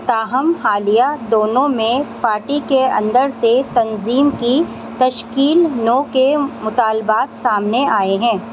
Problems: constant background noise